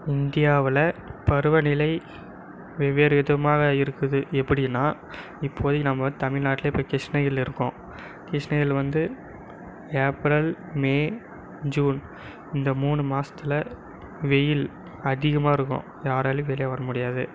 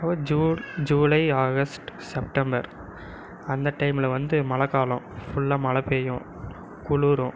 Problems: background conversations at intervals